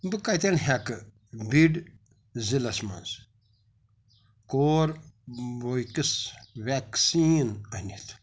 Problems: none marked